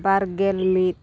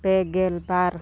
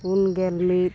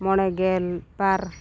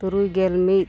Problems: constant background noise, continuous background conversations